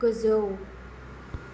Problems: constant background noise